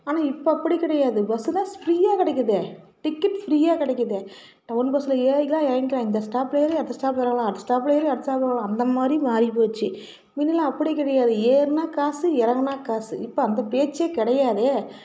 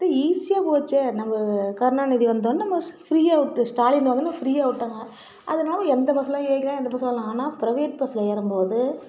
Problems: continuous background conversations